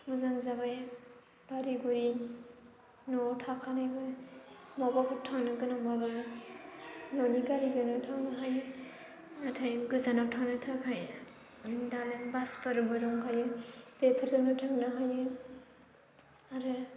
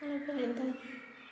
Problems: low volume